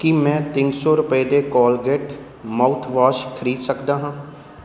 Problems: background sounds at intervals